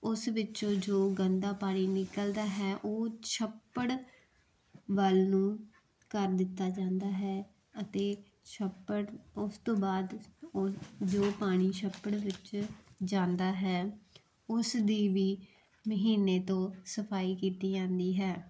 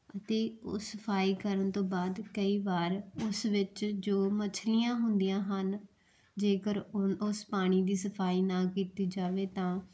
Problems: background sounds at intervals